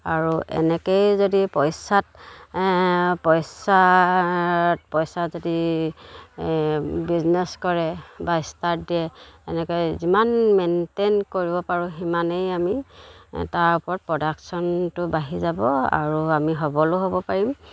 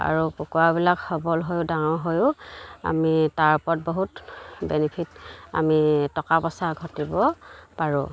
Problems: none marked